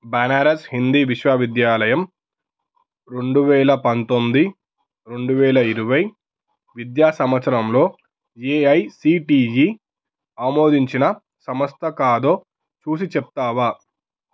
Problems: none marked